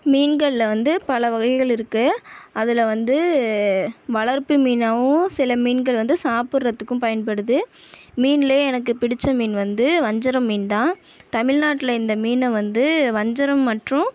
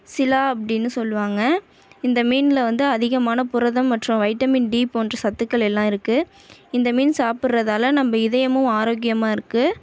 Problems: none marked